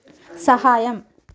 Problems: background sounds at intervals